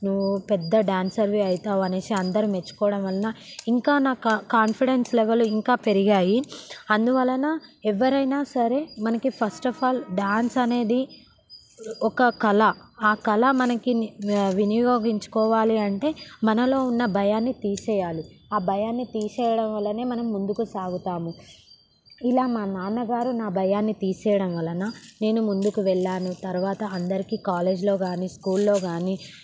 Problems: background sounds at intervals